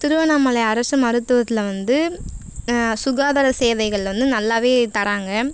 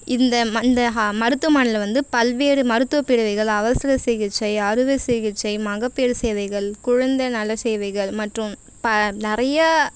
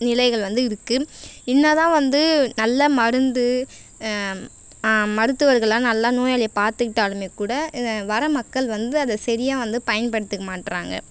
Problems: constant background noise